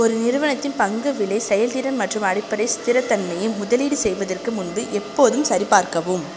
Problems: constant background noise